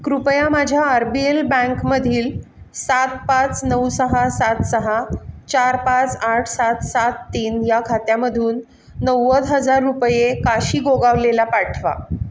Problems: none marked